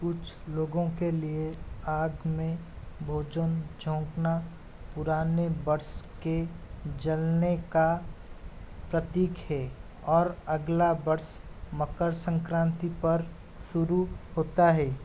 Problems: constant background noise